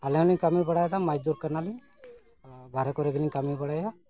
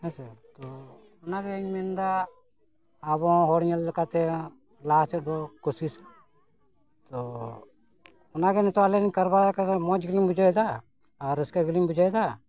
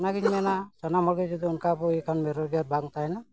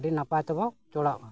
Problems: constant background noise, background conversations at intervals